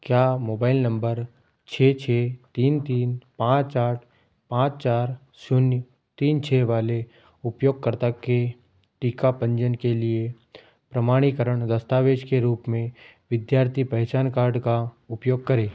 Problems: background sounds at intervals